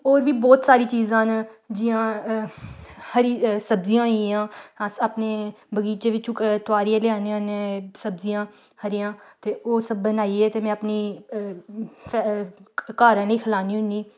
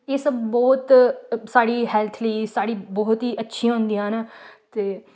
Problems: none marked